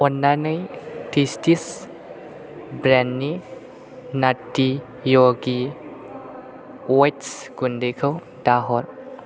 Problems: constant background noise